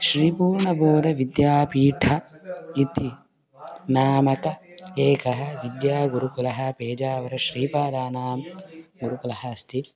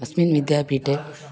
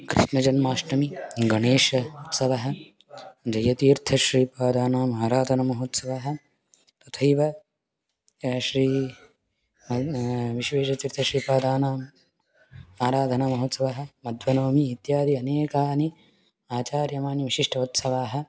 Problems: background sounds at intervals